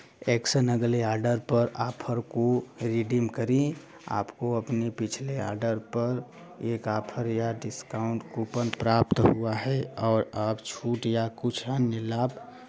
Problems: none marked